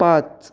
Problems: none marked